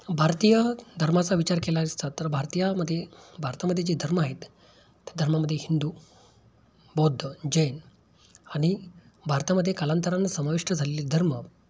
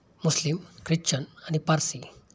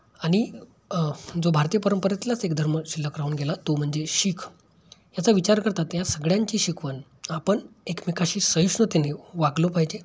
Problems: background sounds at intervals